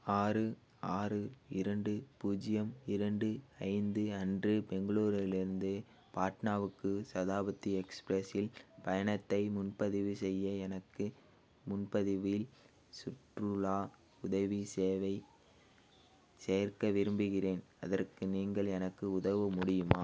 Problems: none marked